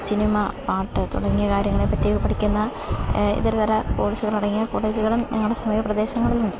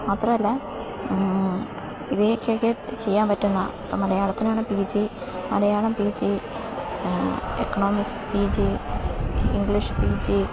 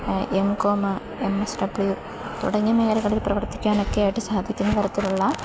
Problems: background sounds at intervals